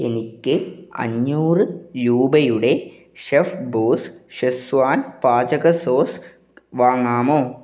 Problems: none marked